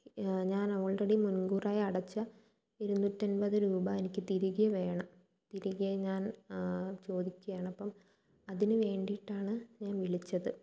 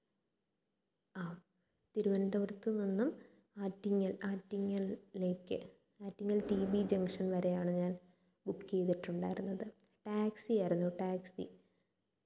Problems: low volume